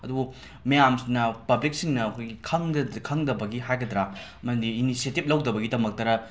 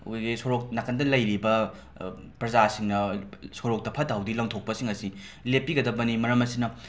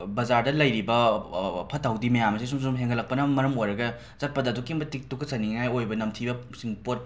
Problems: constant background noise